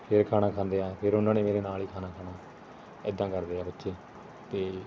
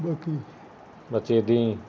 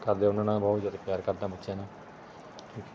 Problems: constant background noise, background conversations at intervals